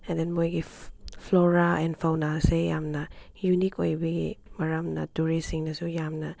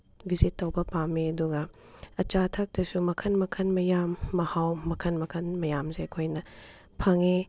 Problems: background sounds at intervals